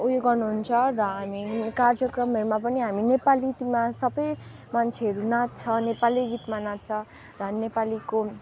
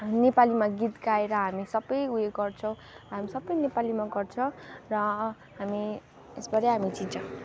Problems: none marked